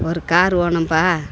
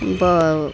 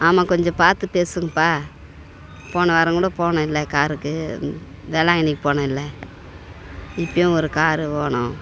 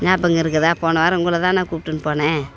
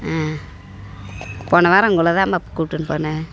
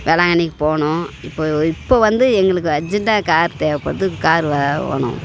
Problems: background sounds at intervals